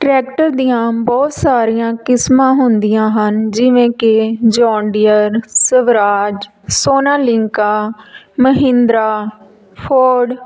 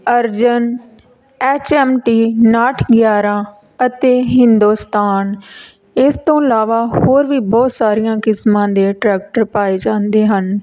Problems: background sounds at intervals